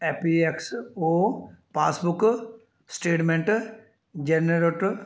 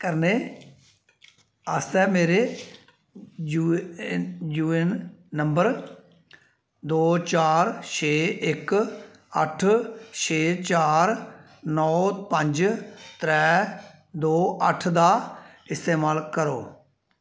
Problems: none marked